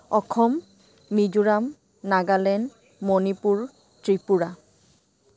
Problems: constant background noise